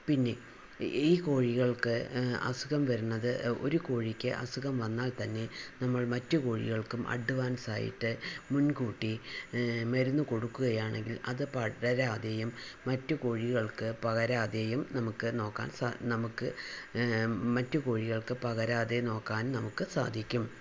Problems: constant background noise, low volume